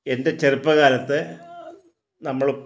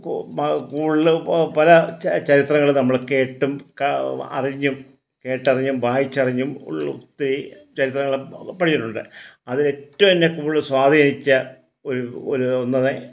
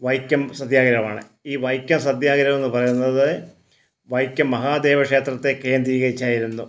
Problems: none marked